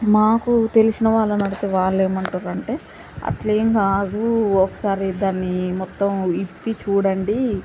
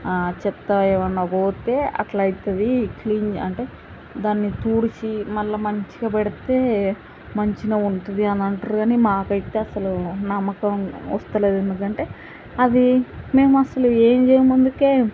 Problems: background sounds at intervals